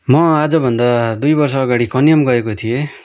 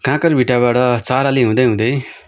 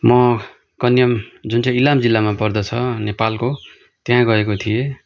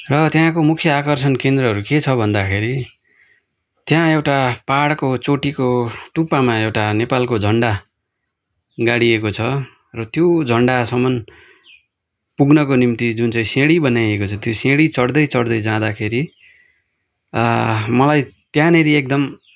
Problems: background sounds at intervals